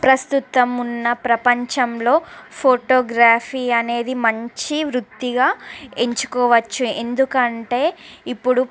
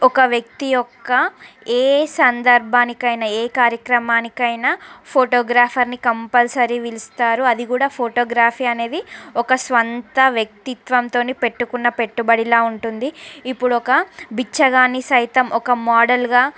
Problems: background sounds at intervals, background conversations at intervals